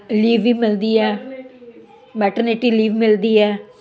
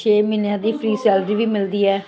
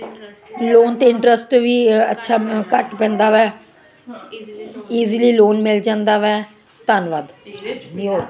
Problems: none marked